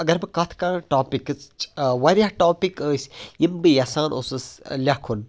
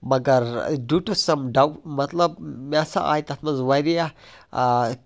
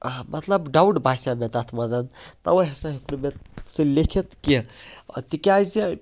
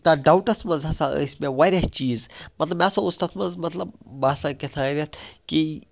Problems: background sounds at intervals